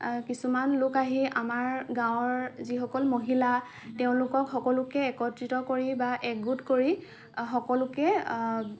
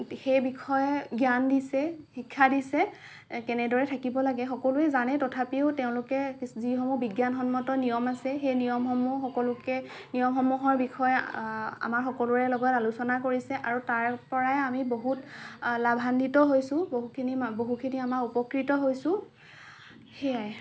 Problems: none marked